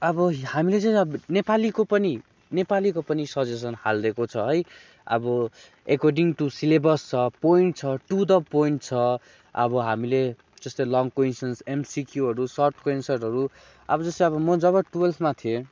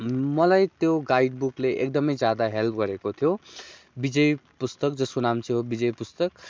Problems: none marked